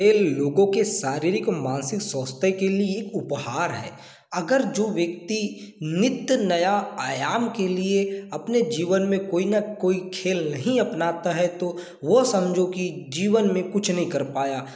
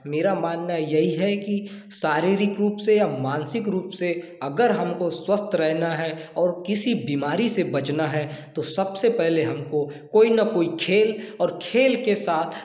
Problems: none marked